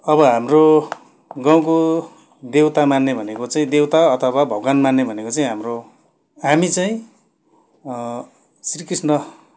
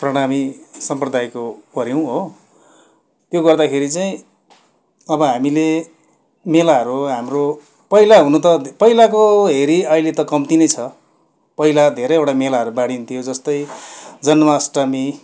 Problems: constant background noise